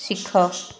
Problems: constant background noise